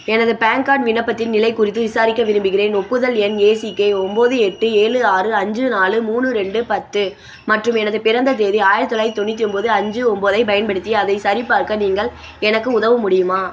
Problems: constant background noise